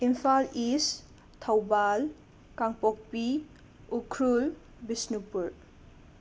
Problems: constant background noise